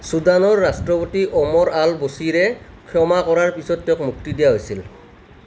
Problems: none marked